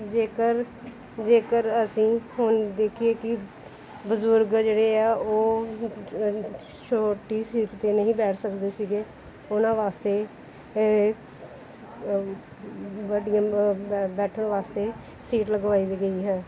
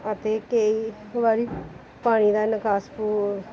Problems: background sounds at intervals